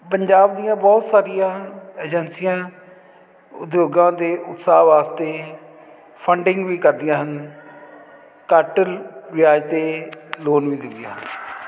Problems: constant background noise